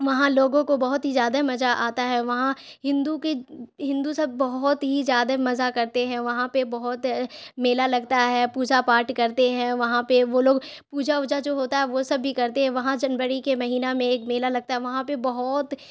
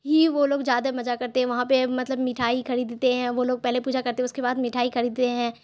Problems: constant background noise